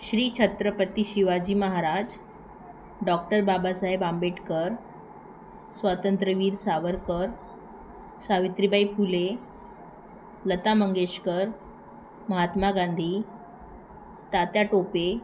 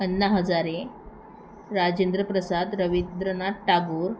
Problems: constant background noise, background conversations at intervals